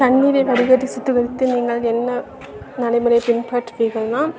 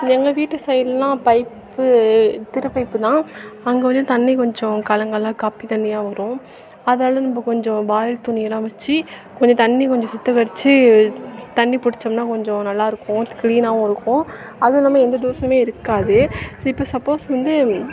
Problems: background conversations at intervals